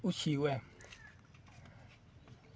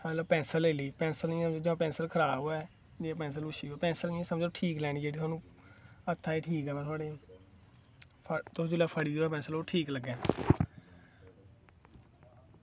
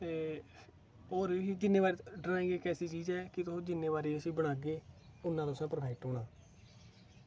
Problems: none marked